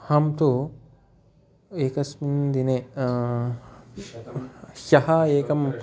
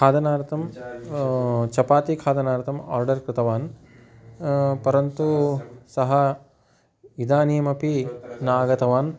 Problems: continuous background conversations